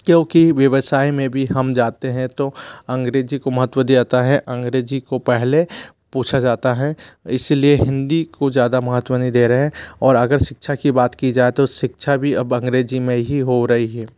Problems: none marked